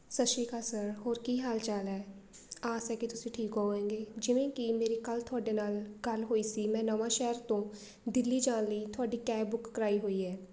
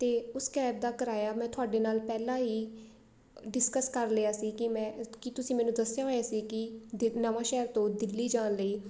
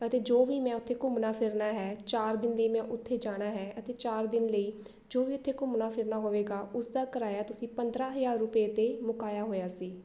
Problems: background sounds at intervals, background conversations at intervals